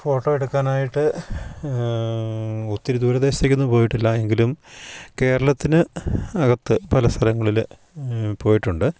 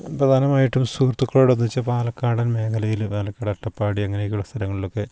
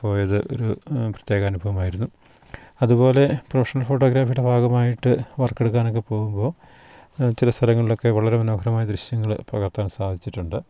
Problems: none marked